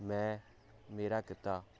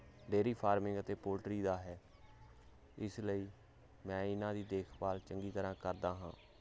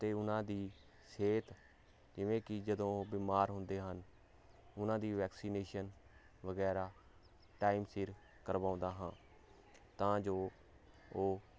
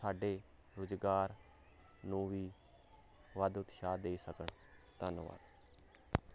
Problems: none marked